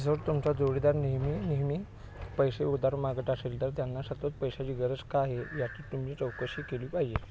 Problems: none marked